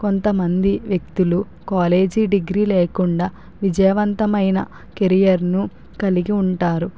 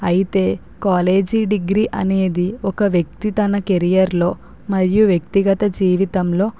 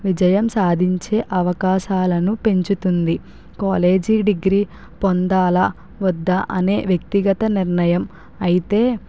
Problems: none marked